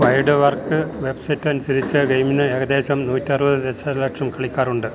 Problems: constant background noise